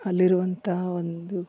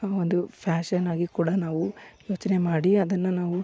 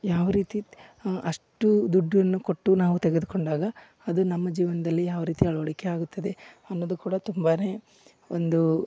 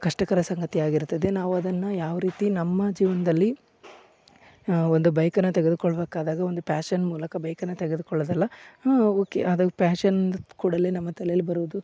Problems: none marked